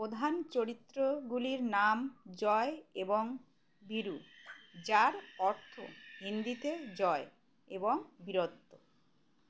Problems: background sounds at intervals